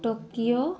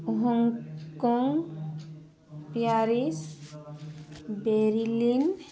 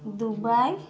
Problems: constant background noise